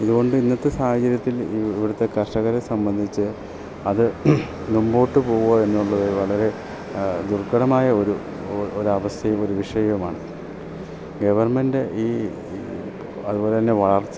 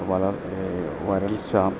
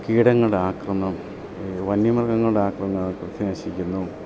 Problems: constant background noise, low volume